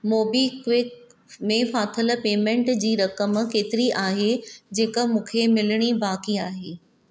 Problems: none marked